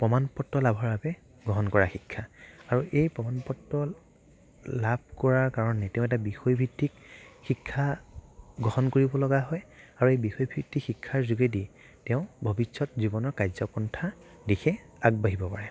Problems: background sounds at intervals, low volume